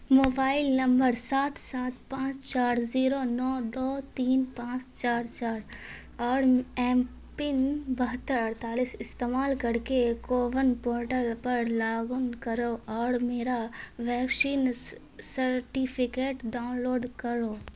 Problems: constant background noise